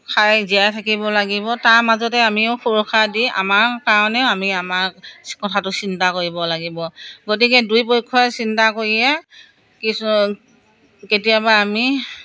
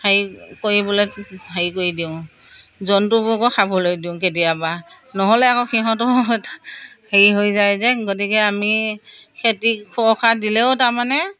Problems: background conversations at intervals